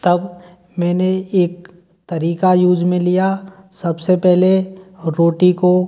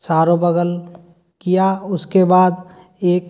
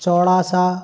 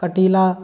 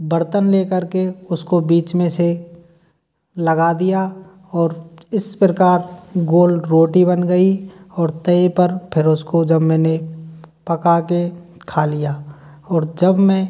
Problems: none marked